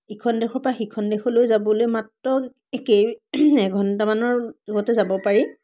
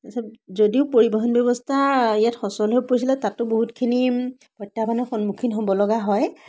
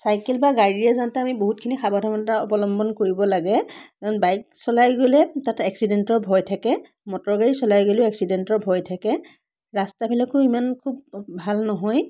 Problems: background sounds at intervals, background conversations at intervals